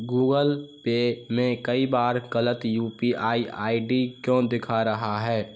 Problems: constant background noise